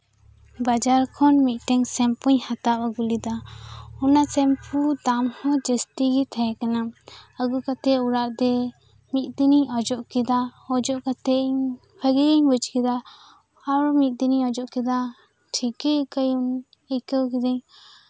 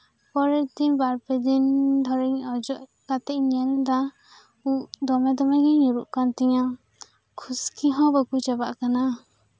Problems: background sounds at intervals, background conversations at intervals